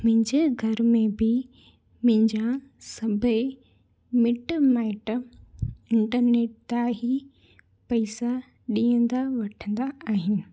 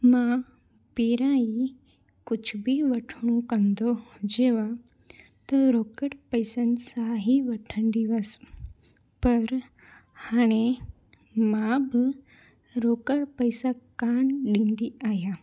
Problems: constant background noise